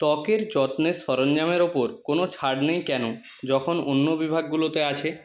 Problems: none marked